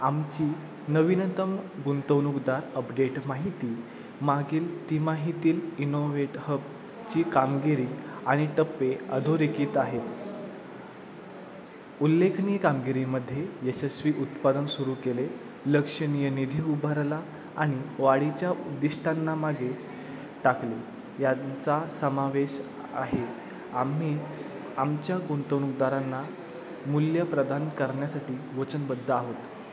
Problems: none marked